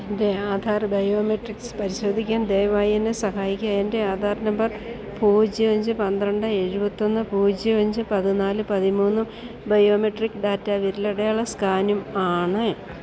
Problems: constant background noise, low volume